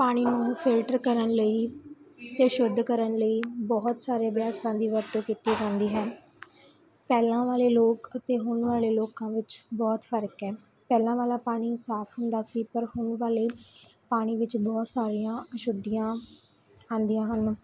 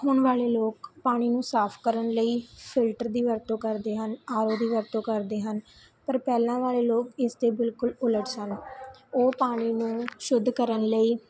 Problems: constant background noise